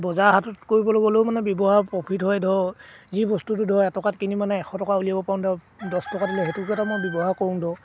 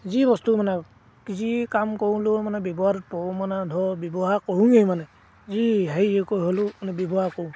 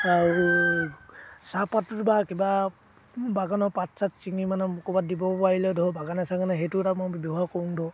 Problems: background sounds at intervals